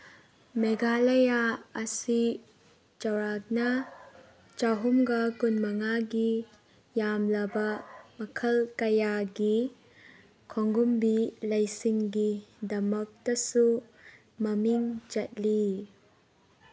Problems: background sounds at intervals